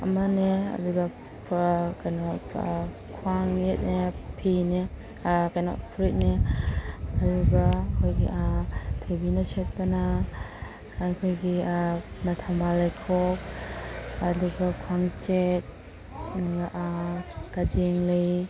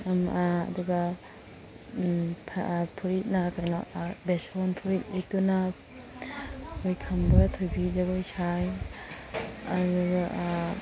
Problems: constant background noise